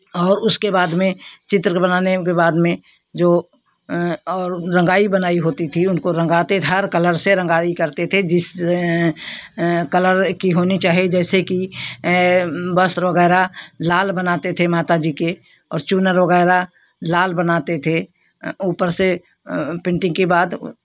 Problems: none marked